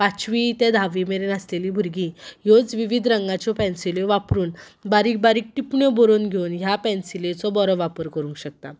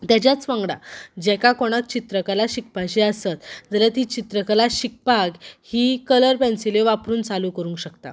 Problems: none marked